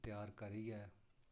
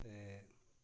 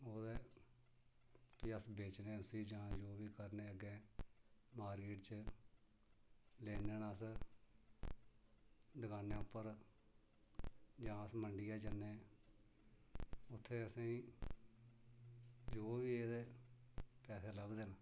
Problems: low volume